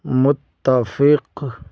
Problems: none marked